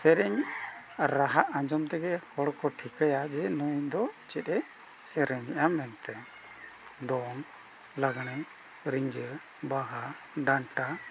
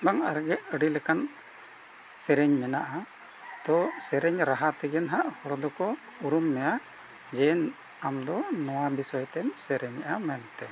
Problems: constant background noise